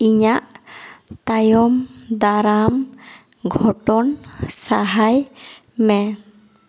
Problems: echo